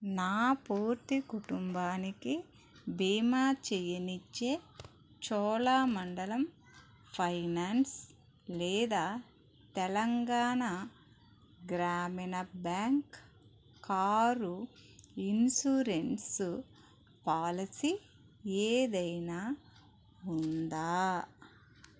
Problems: none marked